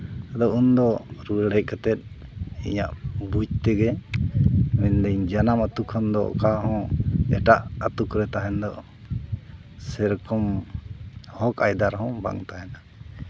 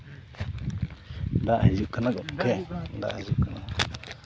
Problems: constant background noise